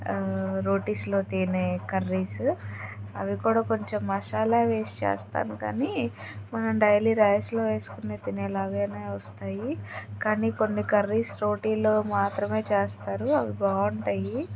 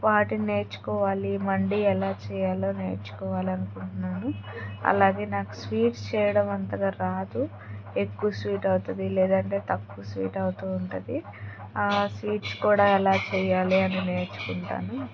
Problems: background sounds at intervals, background conversations at intervals